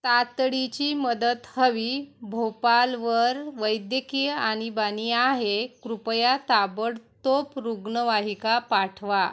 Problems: none marked